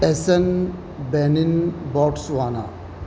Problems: constant background noise